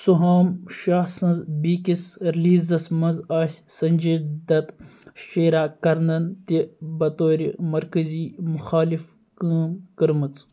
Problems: none marked